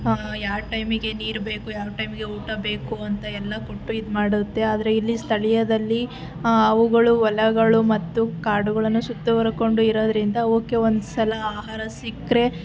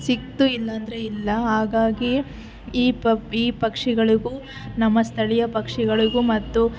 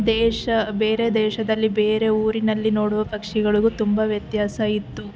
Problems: constant background noise